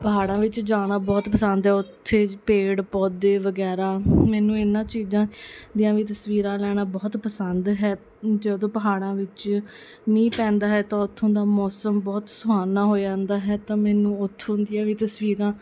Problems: background sounds at intervals, background conversations at intervals